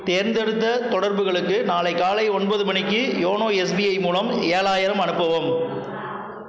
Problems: background conversations at intervals